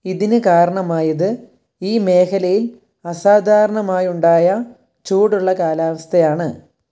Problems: low volume